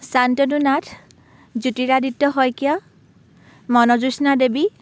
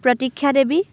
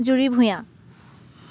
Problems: none marked